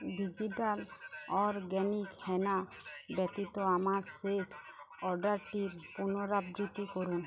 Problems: continuous background conversations